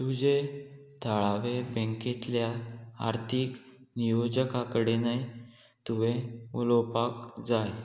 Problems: none marked